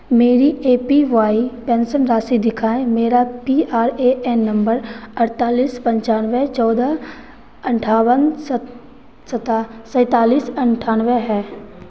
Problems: none marked